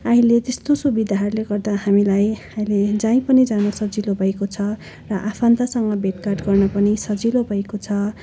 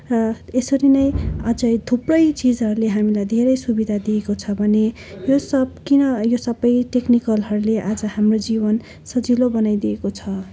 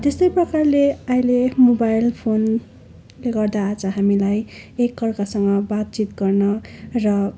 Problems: constant background noise